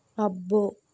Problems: none marked